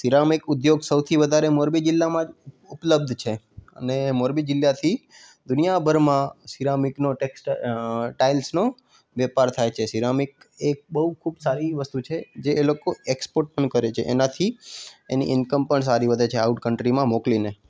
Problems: constant background noise